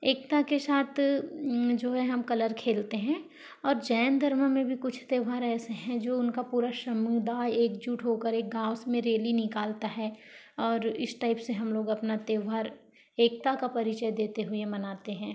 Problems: background sounds at intervals